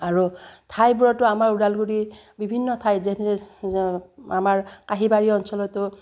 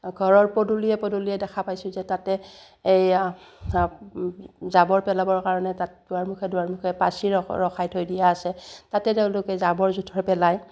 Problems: none marked